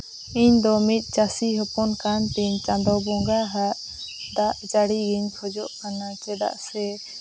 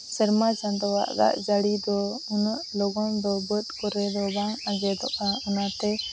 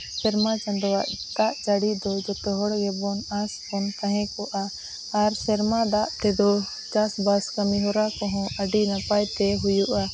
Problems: none marked